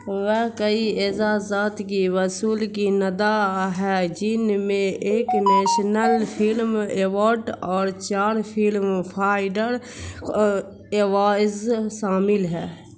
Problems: constant background noise